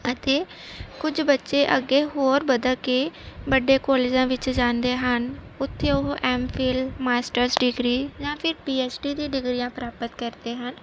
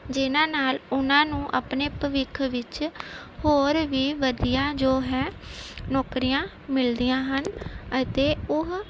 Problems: none marked